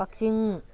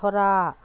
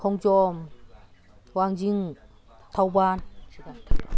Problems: none marked